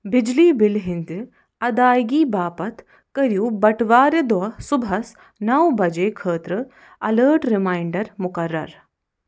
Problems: none marked